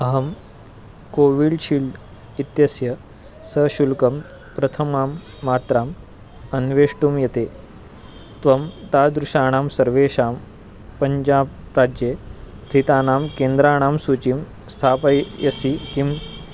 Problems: constant background noise